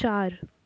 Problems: none marked